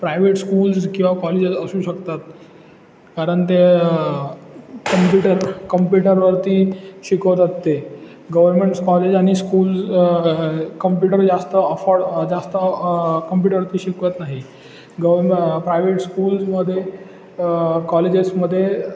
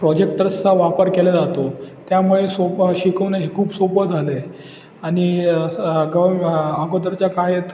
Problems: constant background noise, background conversations at intervals